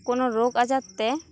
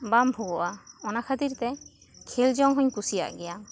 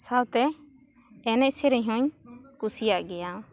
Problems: continuous background conversations